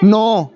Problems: none marked